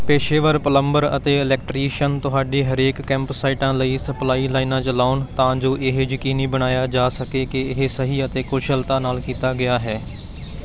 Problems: none marked